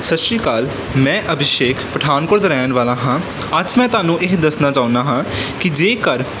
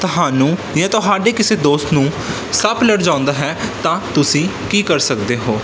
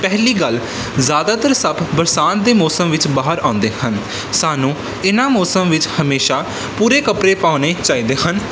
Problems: none marked